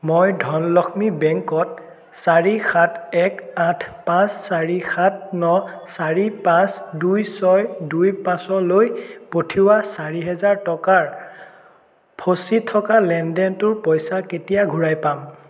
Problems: echo